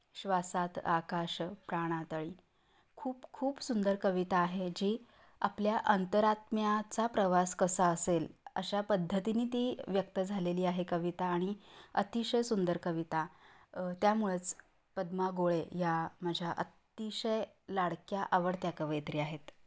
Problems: none marked